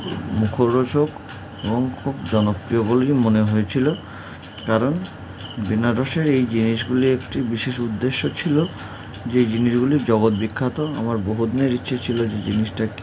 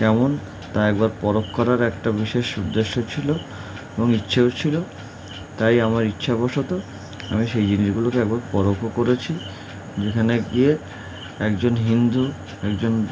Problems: none marked